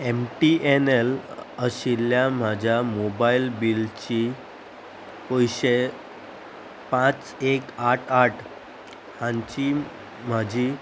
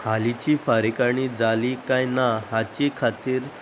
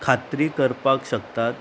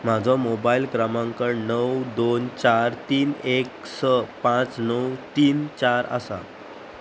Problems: constant background noise